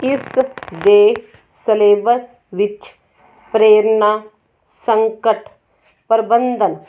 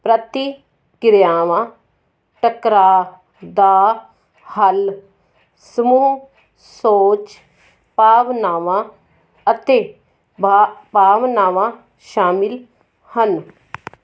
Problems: constant background noise